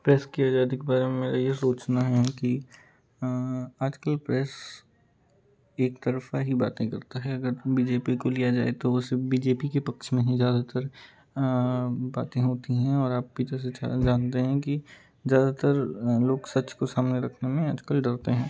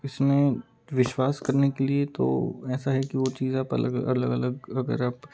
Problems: constant background noise